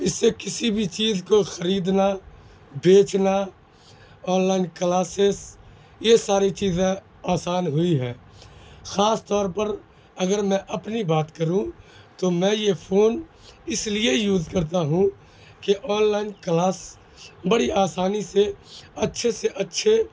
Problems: background sounds at intervals